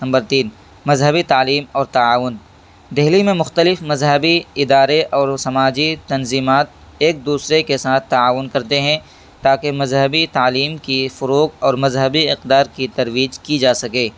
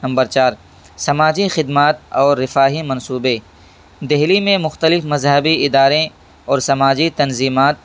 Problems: background sounds at intervals